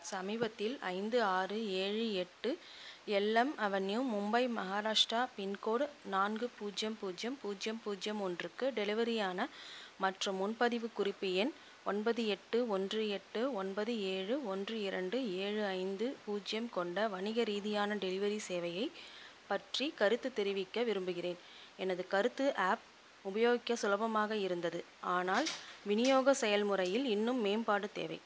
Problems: constant background noise, low volume